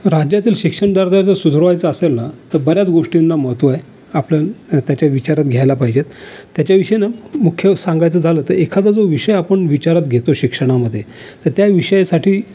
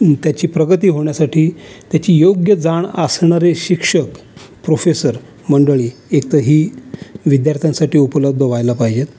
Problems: none marked